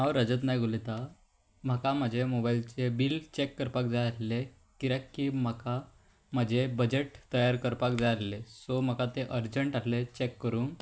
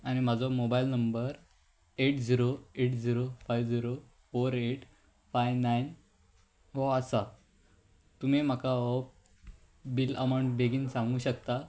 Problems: background sounds at intervals